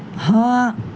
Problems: constant background noise